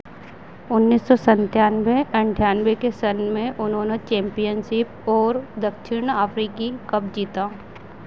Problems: none marked